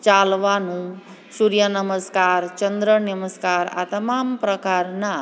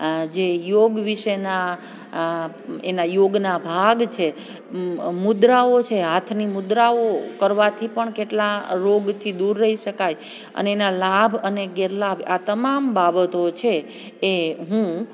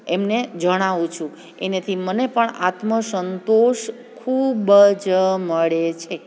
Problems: none marked